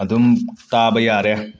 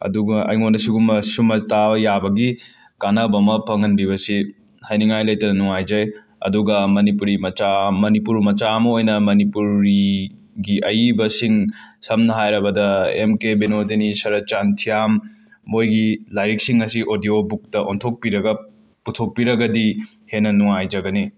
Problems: none marked